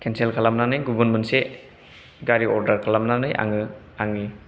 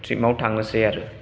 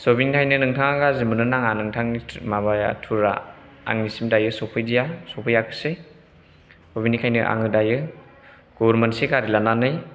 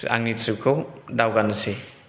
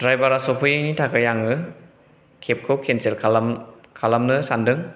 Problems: background sounds at intervals